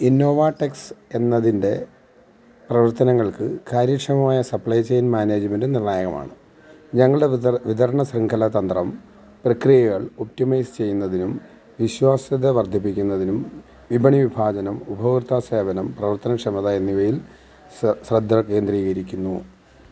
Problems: background sounds at intervals